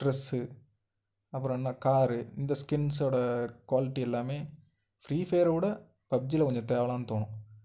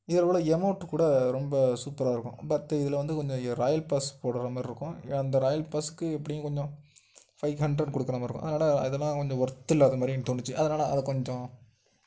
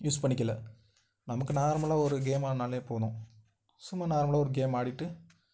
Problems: none marked